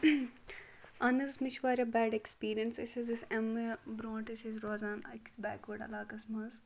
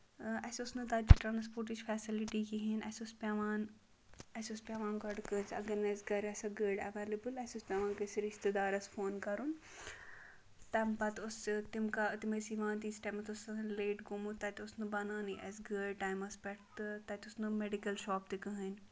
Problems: background conversations at intervals